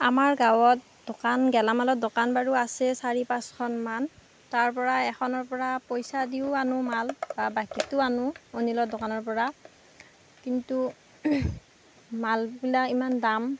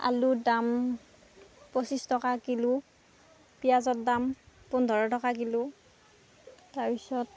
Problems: constant background noise